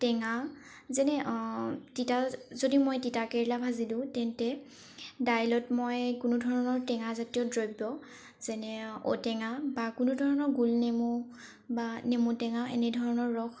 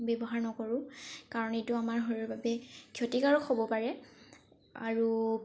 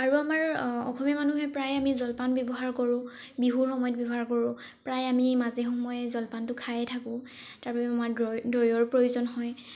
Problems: background sounds at intervals